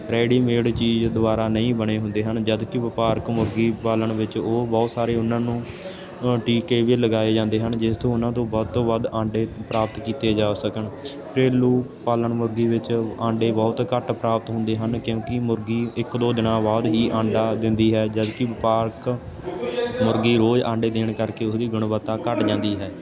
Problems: none marked